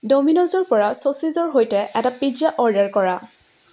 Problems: constant background noise